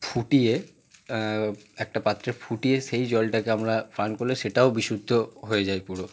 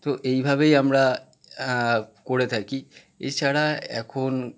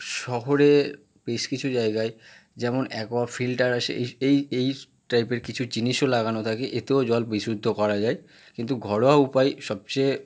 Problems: none marked